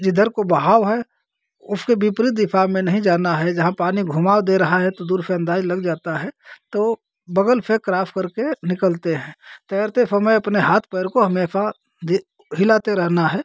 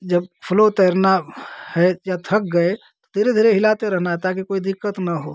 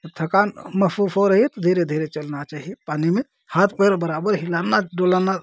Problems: constant background noise